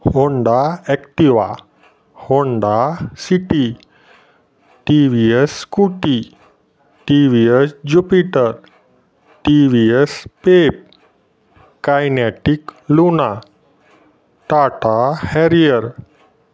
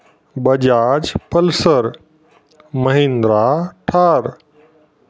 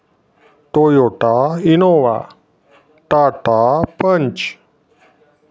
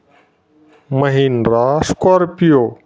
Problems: none marked